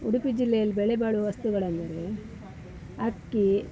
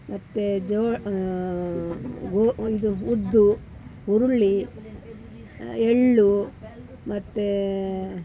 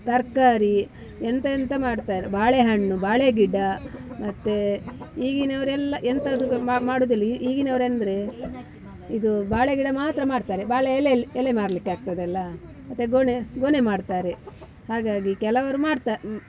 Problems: background sounds at intervals, background conversations at intervals